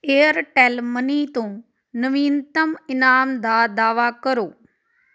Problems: background sounds at intervals